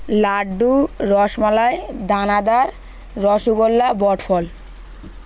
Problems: none marked